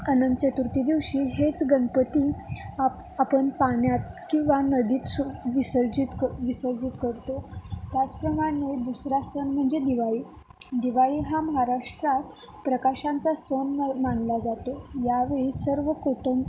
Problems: none marked